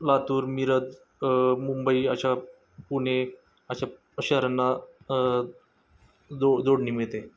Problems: constant background noise, background conversations at intervals